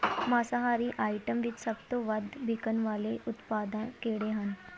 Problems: constant background noise, background conversations at intervals